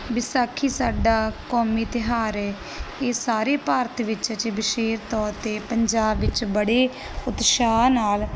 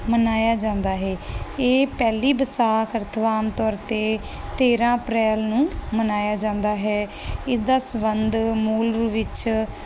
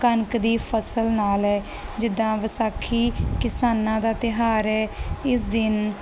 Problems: background sounds at intervals